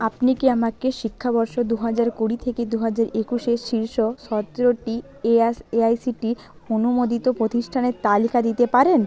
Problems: background conversations at intervals